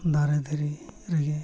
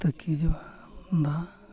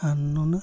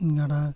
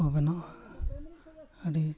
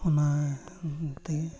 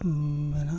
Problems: constant background noise, continuous background conversations